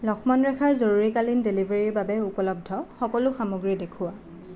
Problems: constant background noise